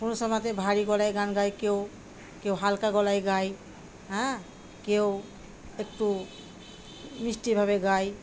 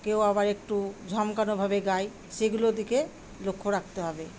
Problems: constant background noise